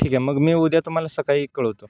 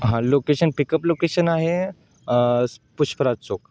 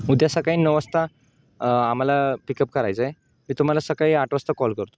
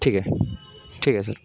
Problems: background sounds at intervals, background conversations at intervals